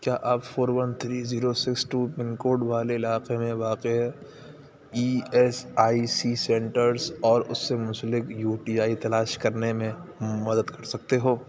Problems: constant background noise